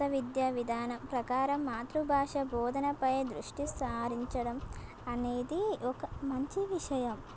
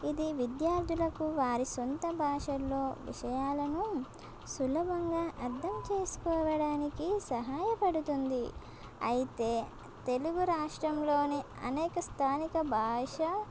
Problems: constant background noise